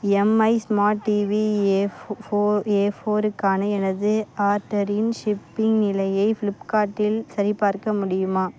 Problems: background sounds at intervals